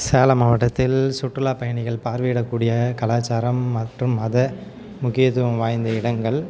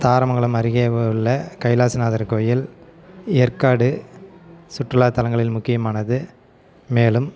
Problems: background sounds at intervals, background conversations at intervals